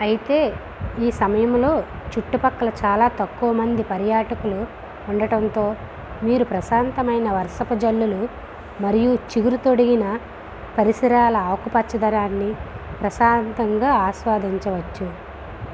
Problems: constant background noise